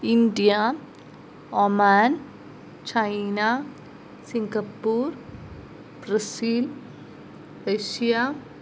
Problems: none marked